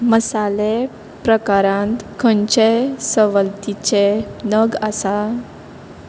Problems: constant background noise